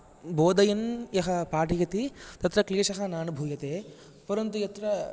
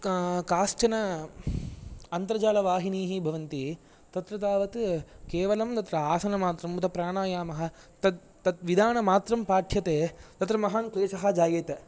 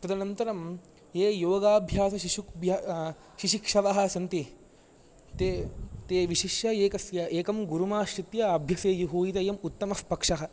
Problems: low volume